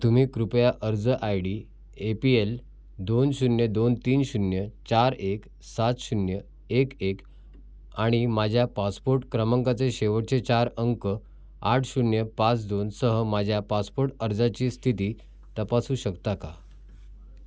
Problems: background sounds at intervals, background conversations at intervals